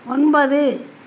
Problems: constant background noise